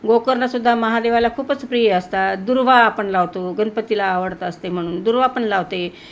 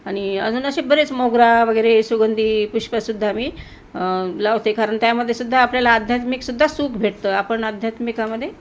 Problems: none marked